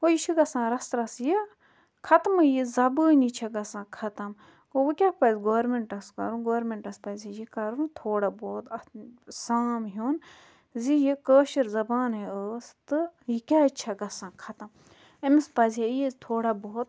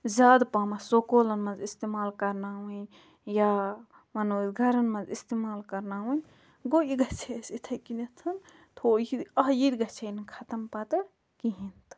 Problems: background sounds at intervals